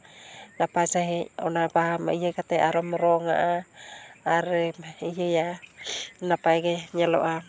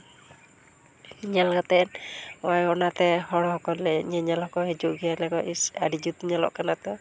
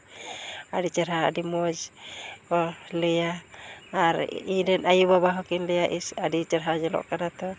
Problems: background conversations at intervals